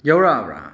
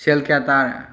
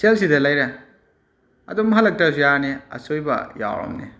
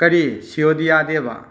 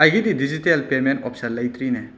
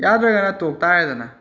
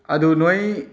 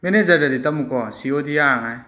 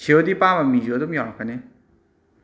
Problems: background sounds at intervals